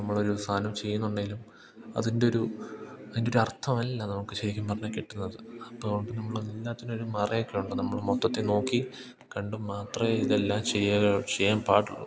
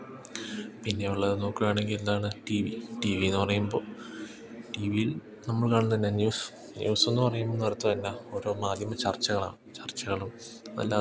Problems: background sounds at intervals